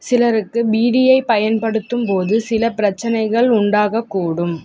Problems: none marked